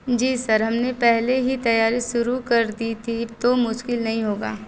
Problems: none marked